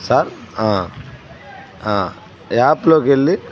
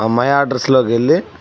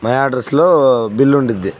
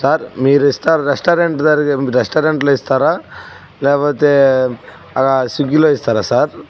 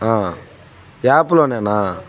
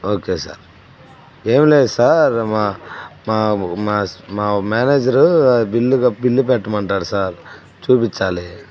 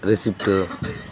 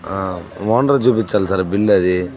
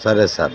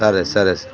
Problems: background sounds at intervals, background conversations at intervals